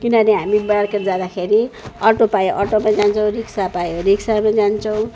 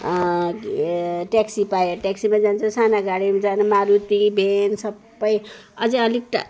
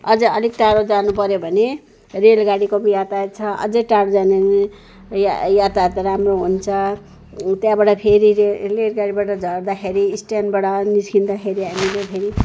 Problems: constant background noise